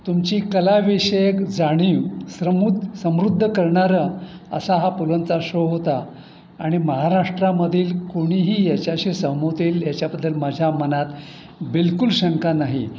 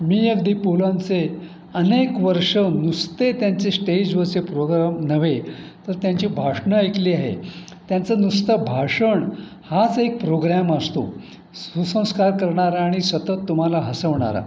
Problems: constant background noise